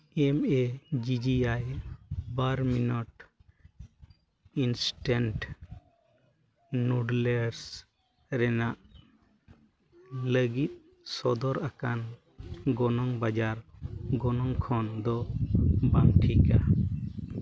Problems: constant background noise